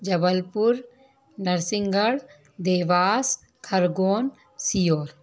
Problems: none marked